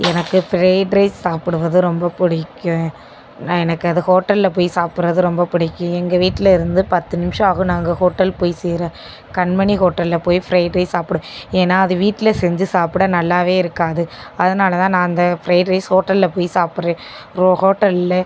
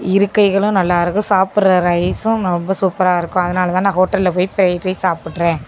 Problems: constant background noise